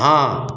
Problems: background sounds at intervals